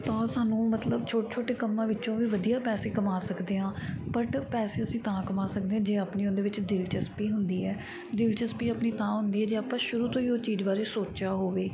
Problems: none marked